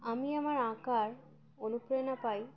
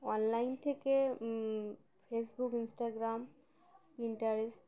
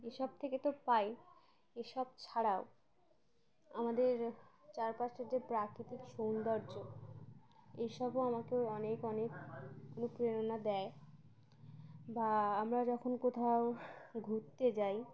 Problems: constant background noise, continuous background conversations